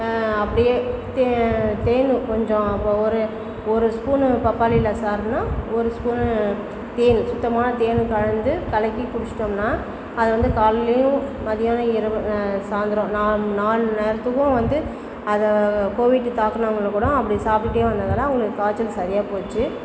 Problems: constant background noise, background conversations at intervals